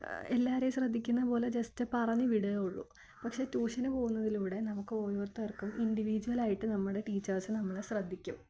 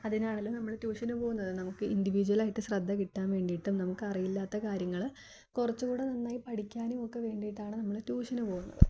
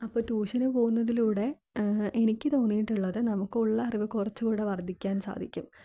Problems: none marked